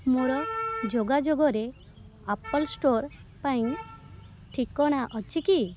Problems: constant background noise